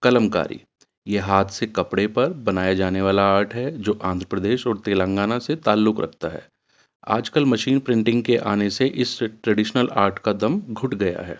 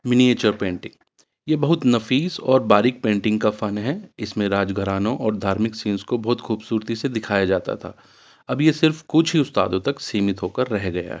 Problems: none marked